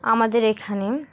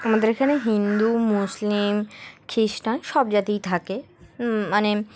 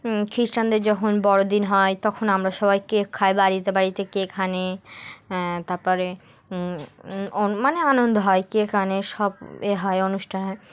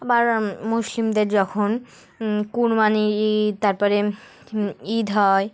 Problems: background sounds at intervals, background conversations at intervals